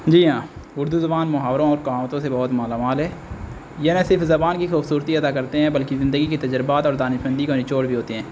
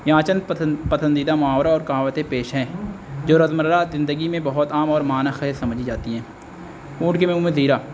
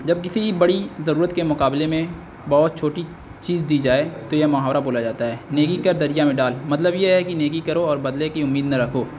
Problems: constant background noise